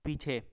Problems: background sounds at intervals